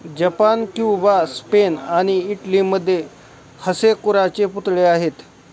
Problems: none marked